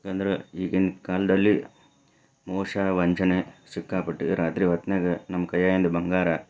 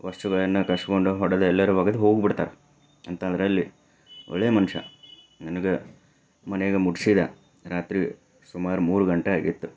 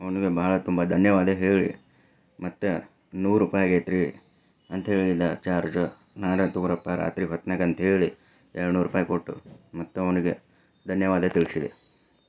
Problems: none marked